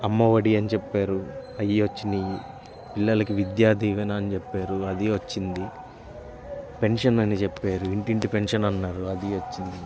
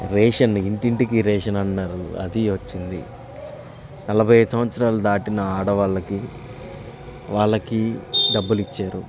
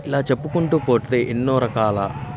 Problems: constant background noise, continuous background conversations